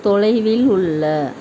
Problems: constant background noise